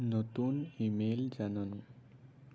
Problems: low volume